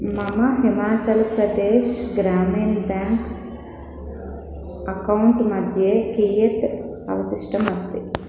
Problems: constant background noise